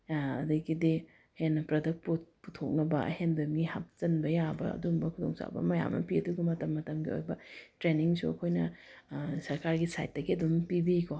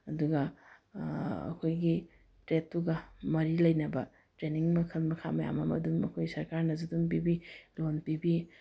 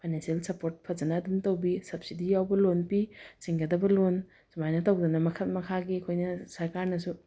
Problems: none marked